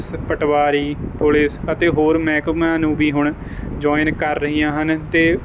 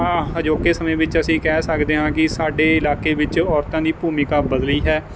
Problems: background sounds at intervals